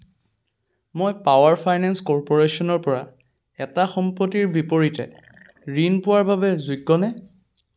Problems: none marked